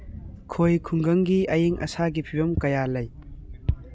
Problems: background sounds at intervals, background conversations at intervals